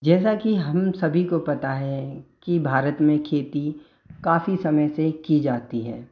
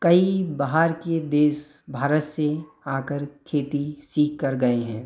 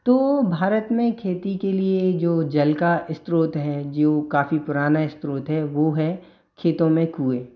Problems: none marked